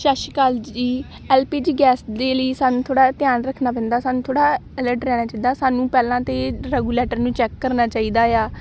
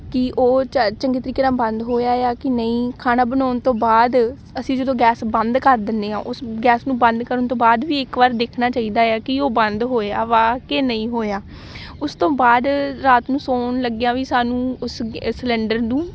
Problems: none marked